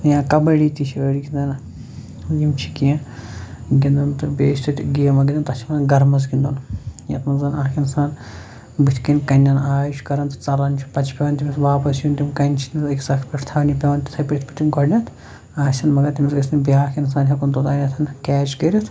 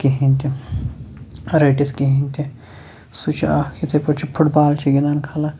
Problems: none marked